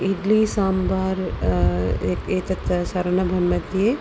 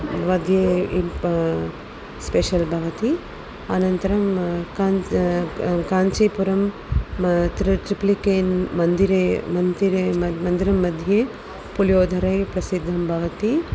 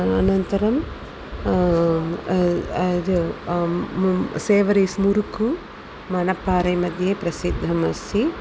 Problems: constant background noise